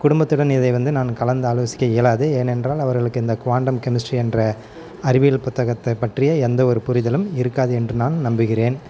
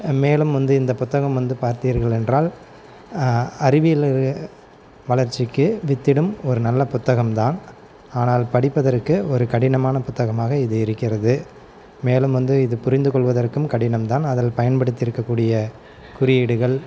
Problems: background sounds at intervals, background conversations at intervals